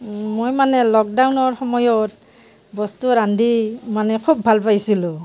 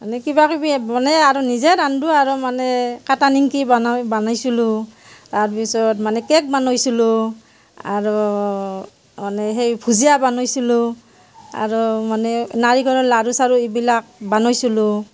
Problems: background sounds at intervals, background conversations at intervals